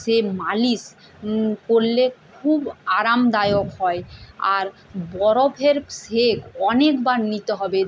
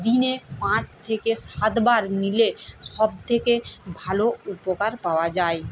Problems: constant background noise